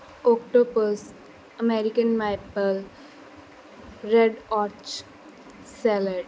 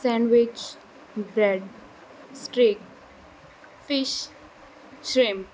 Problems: none marked